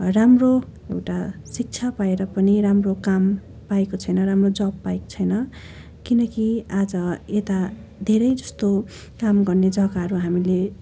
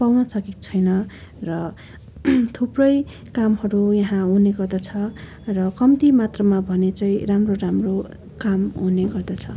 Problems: none marked